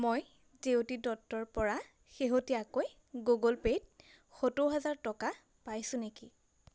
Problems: constant background noise